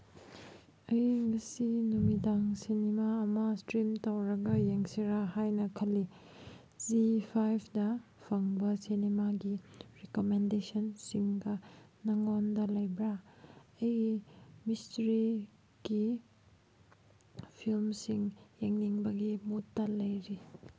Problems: background sounds at intervals